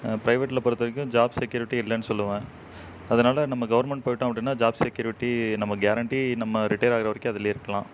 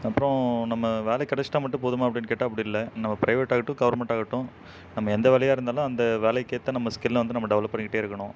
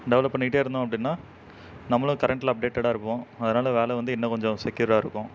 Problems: background sounds at intervals